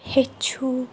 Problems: background sounds at intervals